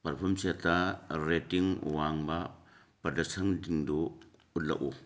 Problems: background sounds at intervals